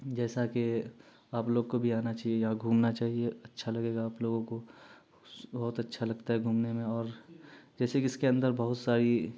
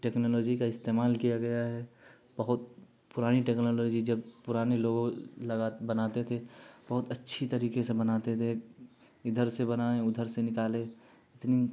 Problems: constant background noise